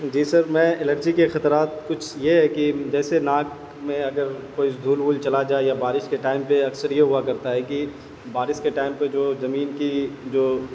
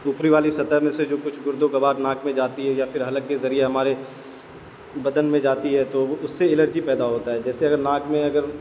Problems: constant background noise